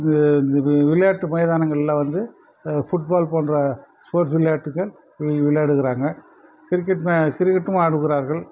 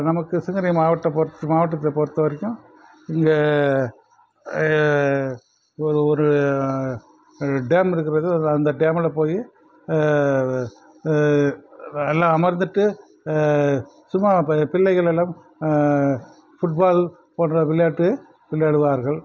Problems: constant background noise